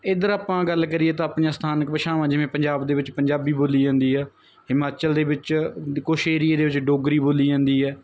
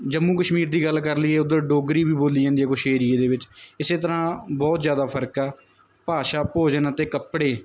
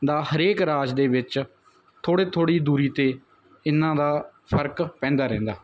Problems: none marked